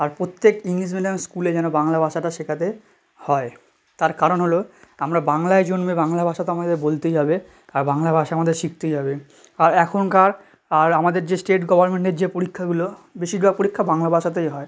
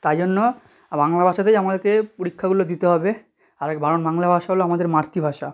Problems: none marked